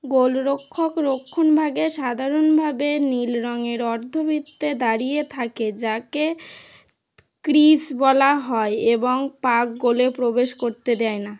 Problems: background sounds at intervals